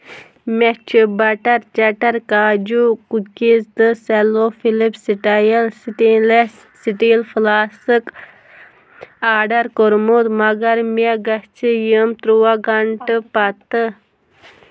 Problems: background sounds at intervals